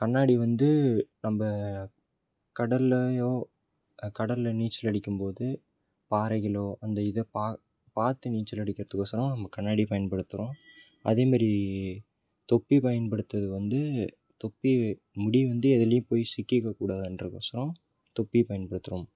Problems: background sounds at intervals